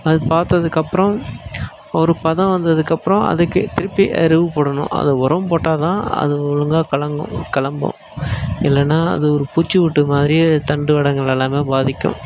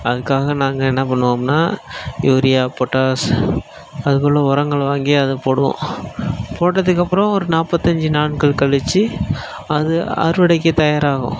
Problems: background sounds at intervals